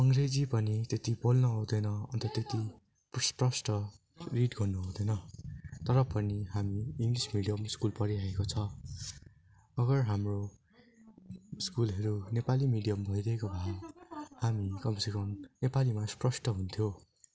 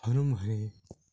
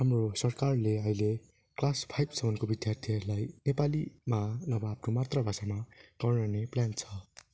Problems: continuous background conversations